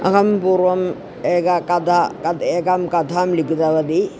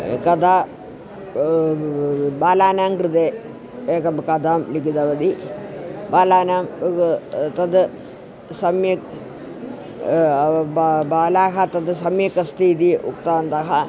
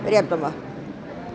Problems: constant background noise